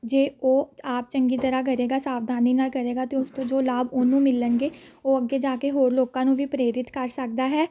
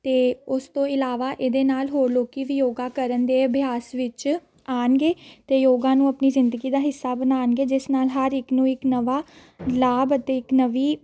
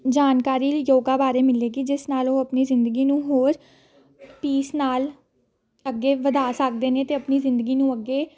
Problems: none marked